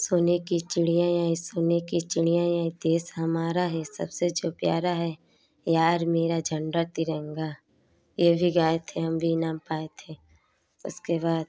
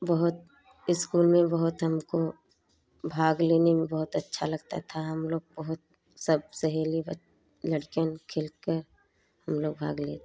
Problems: background sounds at intervals, background conversations at intervals